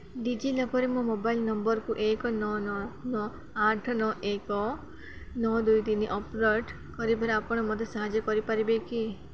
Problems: continuous background conversations